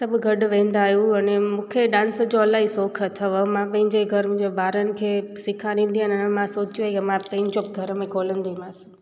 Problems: constant background noise, echo